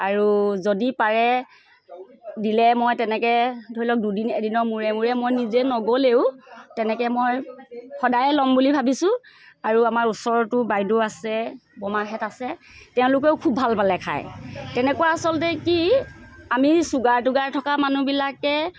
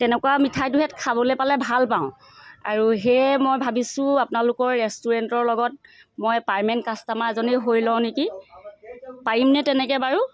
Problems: none marked